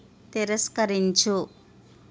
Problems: constant background noise